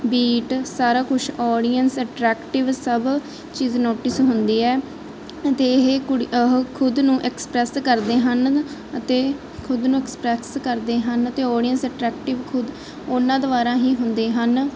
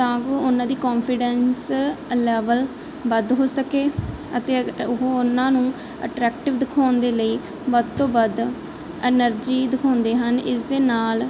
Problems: constant background noise